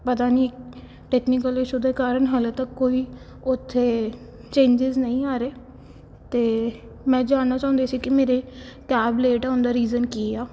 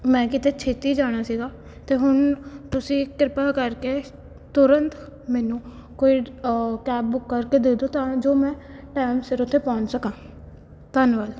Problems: background sounds at intervals